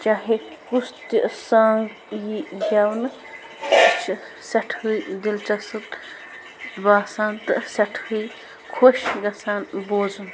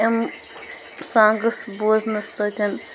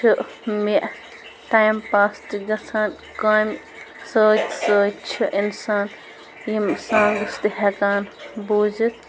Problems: constant background noise, background conversations at intervals